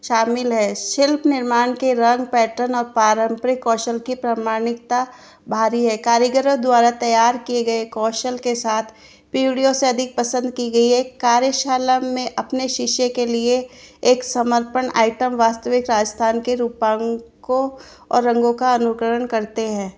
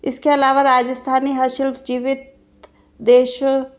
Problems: background sounds at intervals